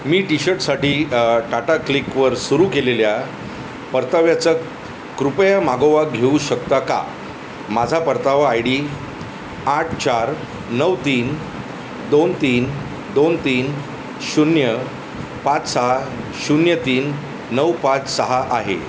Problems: constant background noise